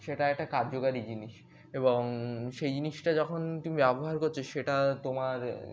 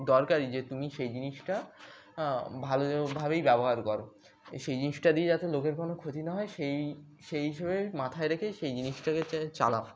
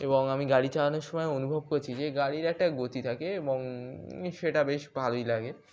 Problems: background sounds at intervals